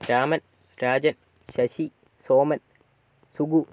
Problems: low volume